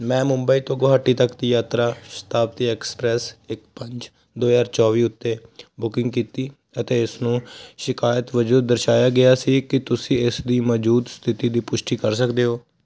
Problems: constant background noise